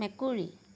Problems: none marked